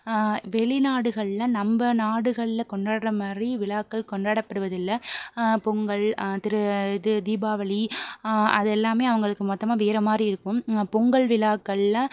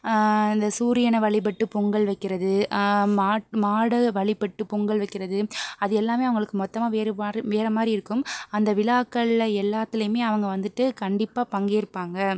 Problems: none marked